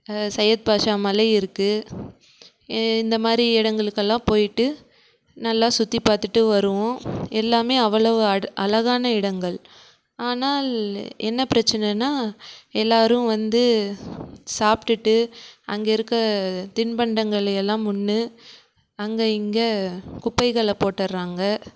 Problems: background sounds at intervals